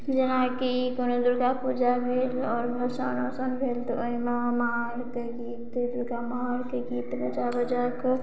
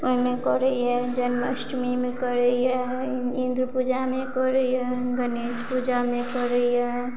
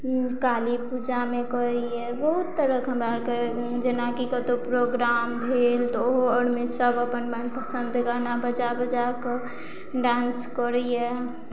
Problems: none marked